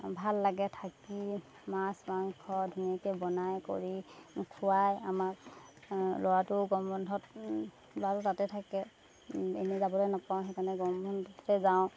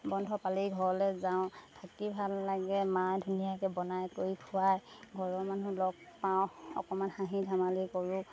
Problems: background sounds at intervals